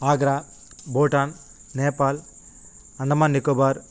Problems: constant background noise